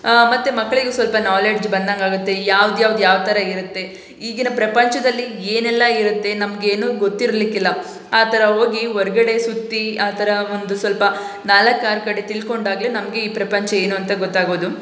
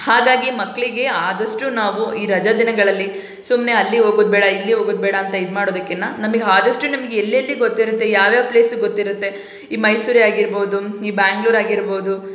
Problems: none marked